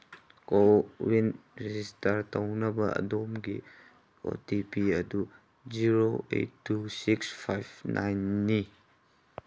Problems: background sounds at intervals